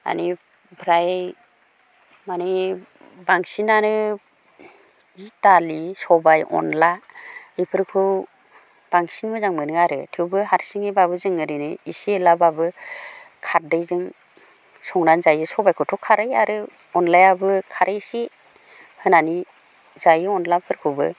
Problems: none marked